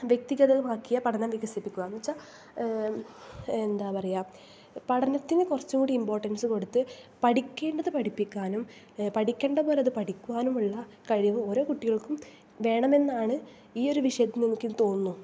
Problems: none marked